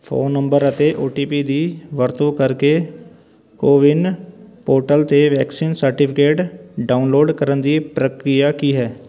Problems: constant background noise, background conversations at intervals